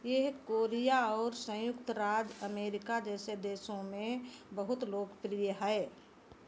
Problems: none marked